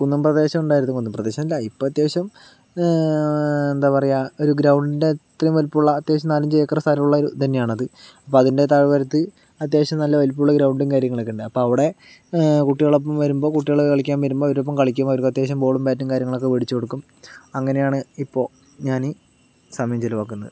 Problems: none marked